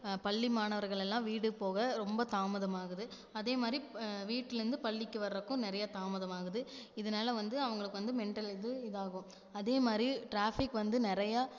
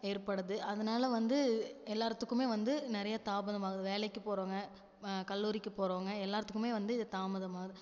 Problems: none marked